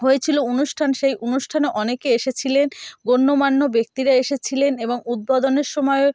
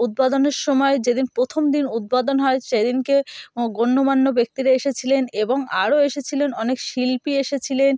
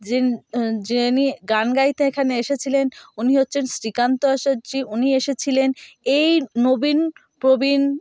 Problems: none marked